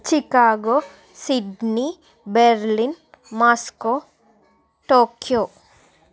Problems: none marked